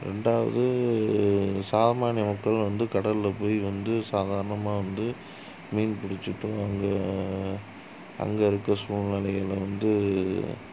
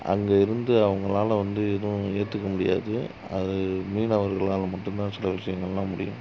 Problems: low volume